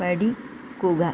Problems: constant background noise